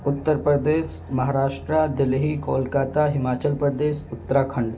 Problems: constant background noise